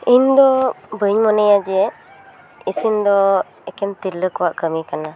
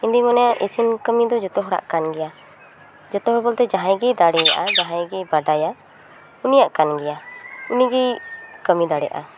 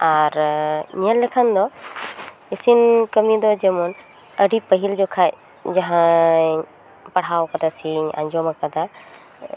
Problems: background sounds at intervals, continuous background conversations